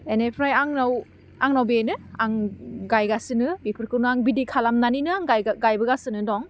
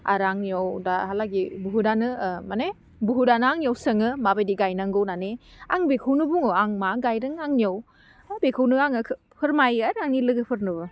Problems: none marked